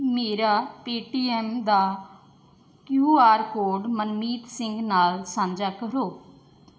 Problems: background sounds at intervals